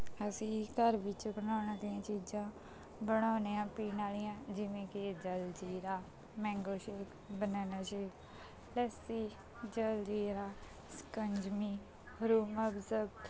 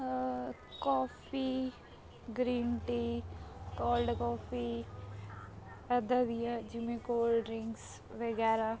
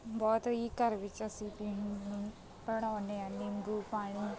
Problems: background conversations at intervals